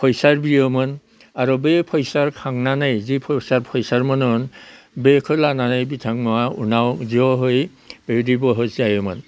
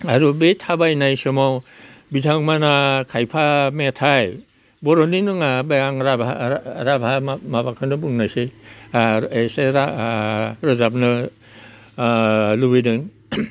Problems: none marked